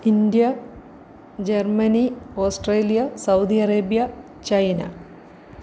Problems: constant background noise